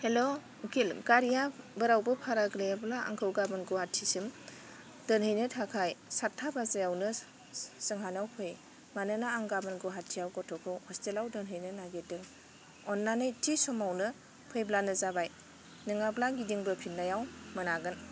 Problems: none marked